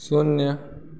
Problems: background sounds at intervals